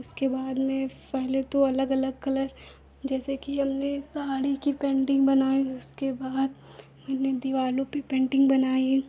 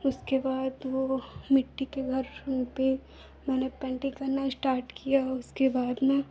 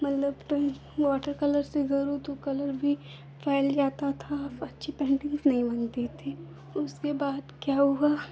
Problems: background sounds at intervals